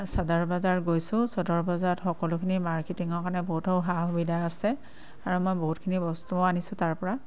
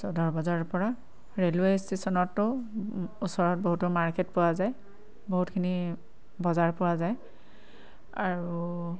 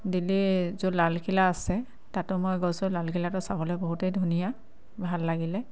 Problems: constant background noise